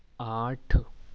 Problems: background sounds at intervals